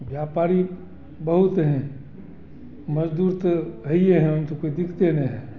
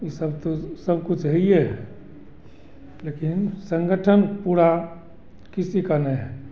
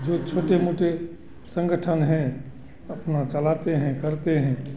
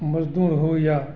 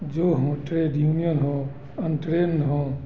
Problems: constant background noise